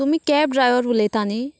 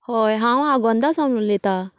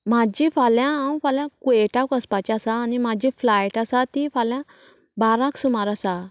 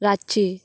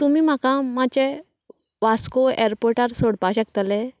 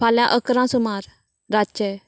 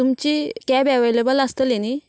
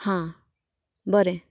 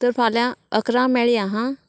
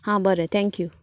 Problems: constant background noise